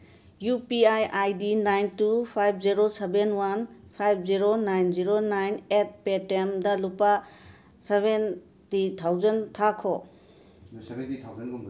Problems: background conversations at intervals